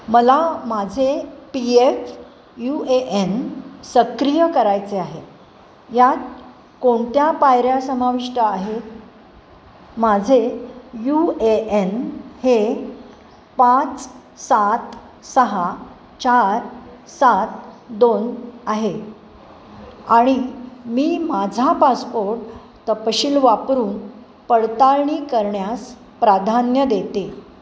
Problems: constant background noise